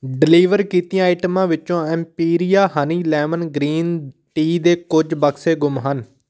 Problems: none marked